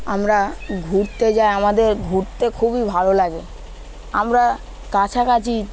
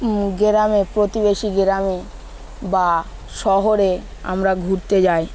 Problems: constant background noise